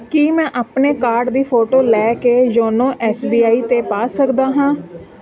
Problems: continuous background conversations